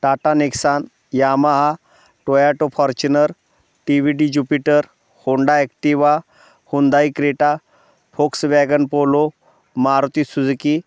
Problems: constant background noise